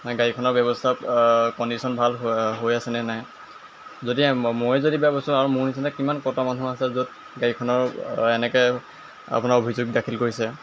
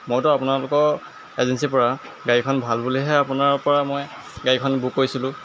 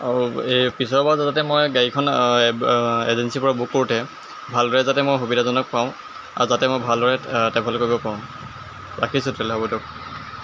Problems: constant background noise